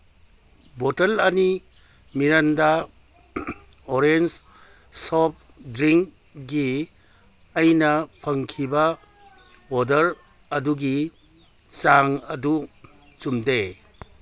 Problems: none marked